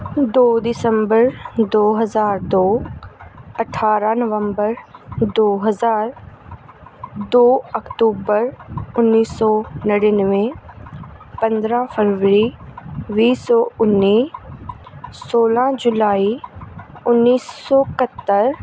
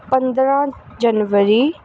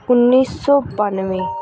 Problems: background sounds at intervals